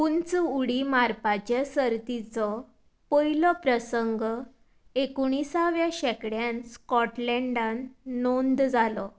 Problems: constant background noise